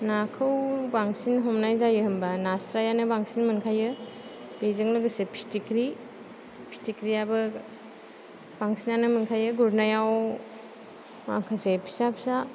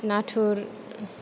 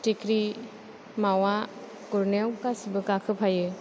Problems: none marked